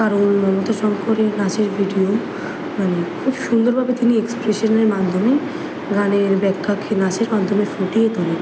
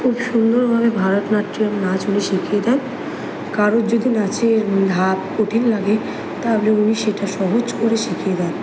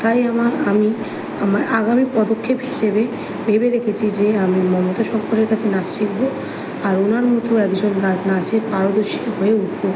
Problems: background sounds at intervals